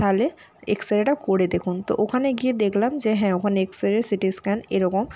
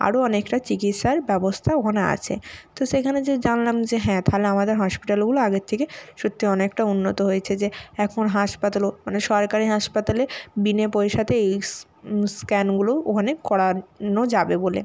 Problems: background sounds at intervals